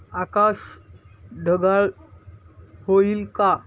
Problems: constant background noise, background conversations at intervals